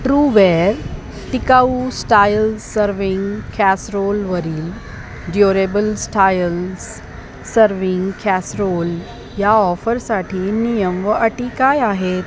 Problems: constant background noise, background conversations at intervals